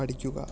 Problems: low volume